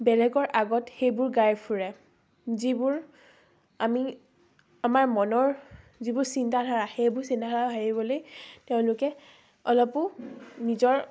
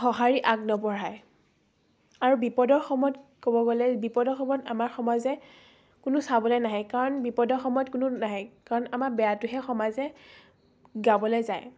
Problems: background sounds at intervals, background conversations at intervals